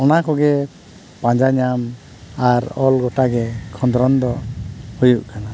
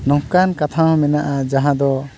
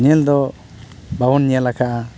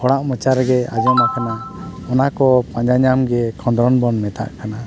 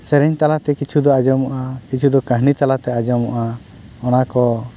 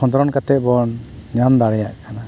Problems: constant background noise